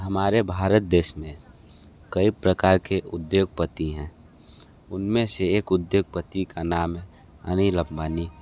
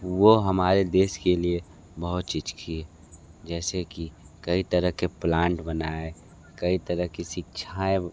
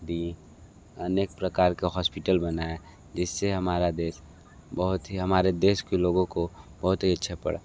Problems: background sounds at intervals